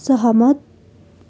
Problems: none marked